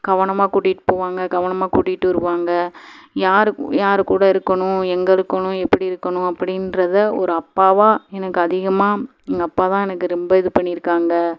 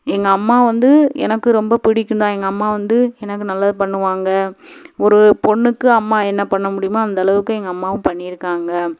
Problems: none marked